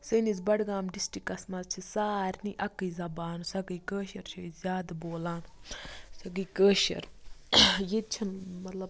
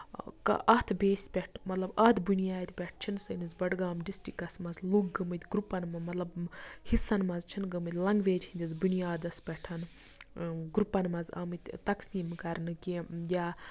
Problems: background sounds at intervals, low volume